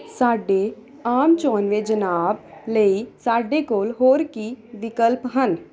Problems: none marked